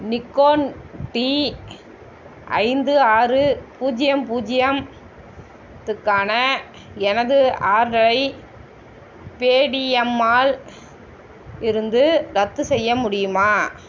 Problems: constant background noise